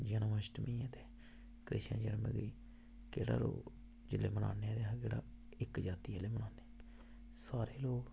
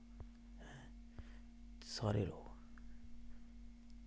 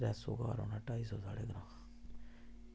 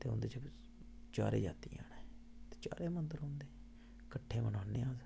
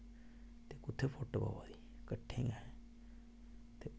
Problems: constant background noise, low volume